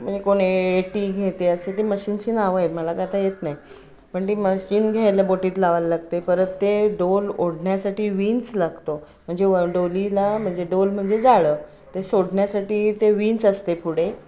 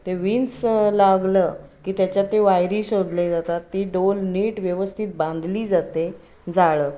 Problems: constant background noise, continuous background conversations